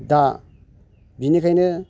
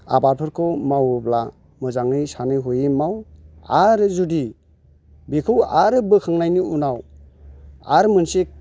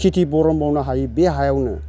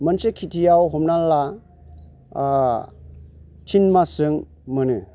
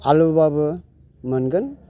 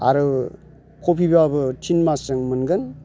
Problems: constant background noise